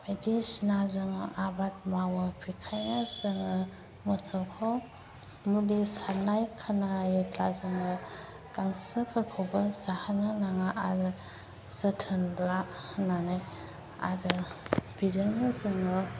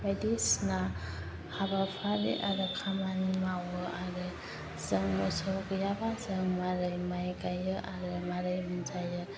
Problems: none marked